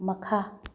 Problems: low volume